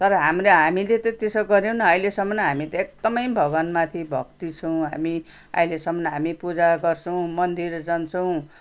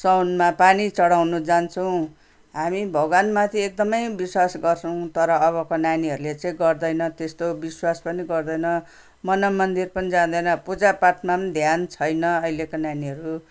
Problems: none marked